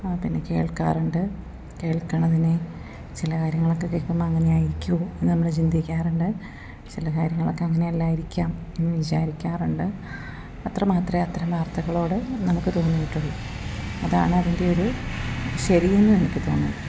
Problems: none marked